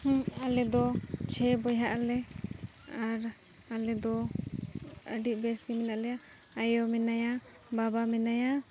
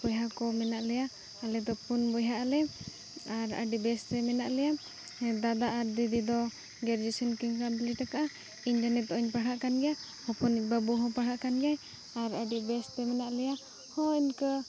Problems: none marked